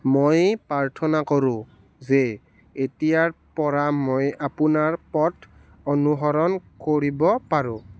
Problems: none marked